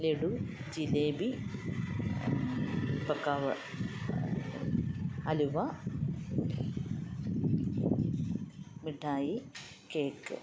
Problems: none marked